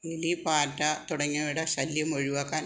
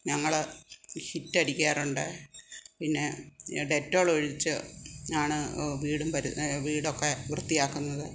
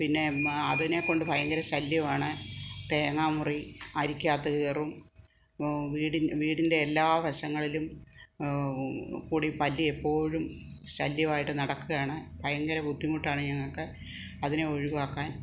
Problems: background conversations at intervals